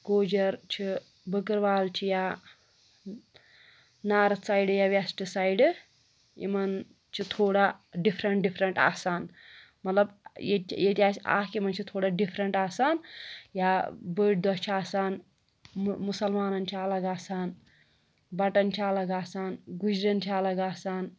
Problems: none marked